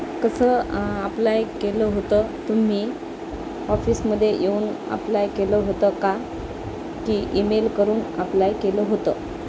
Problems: constant background noise